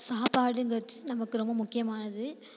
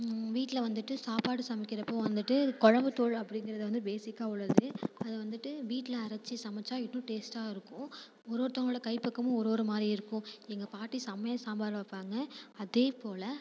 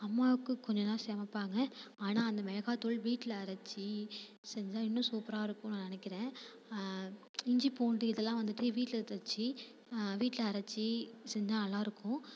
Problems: constant background noise